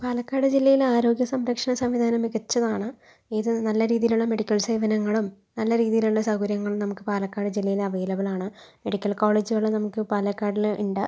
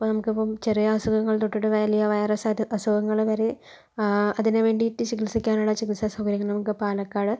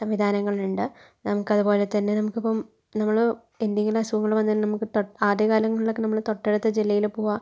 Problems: none marked